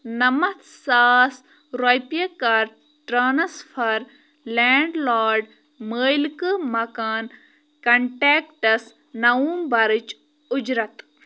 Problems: none marked